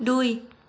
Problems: none marked